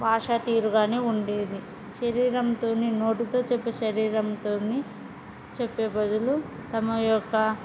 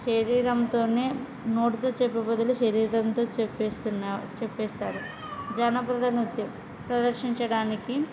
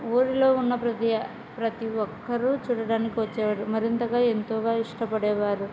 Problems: background conversations at intervals